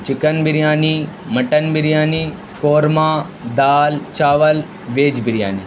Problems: constant background noise